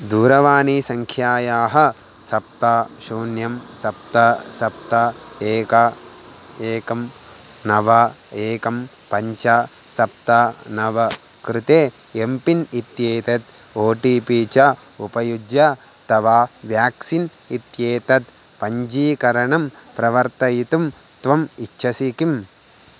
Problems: constant background noise